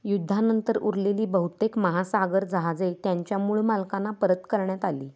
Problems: constant background noise